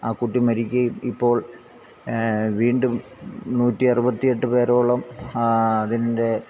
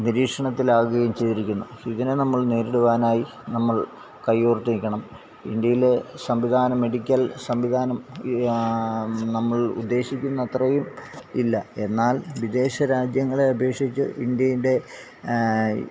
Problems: constant background noise, low volume